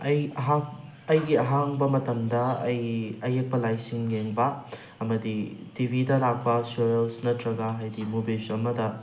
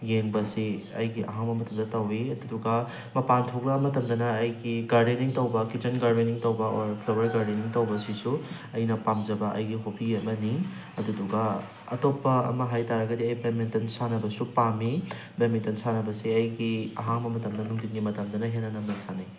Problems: background sounds at intervals